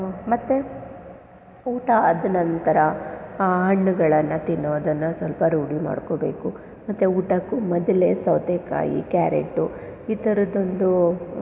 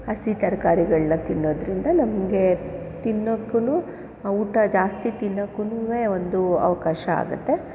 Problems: none marked